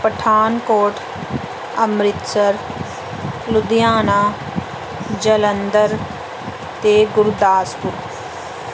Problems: none marked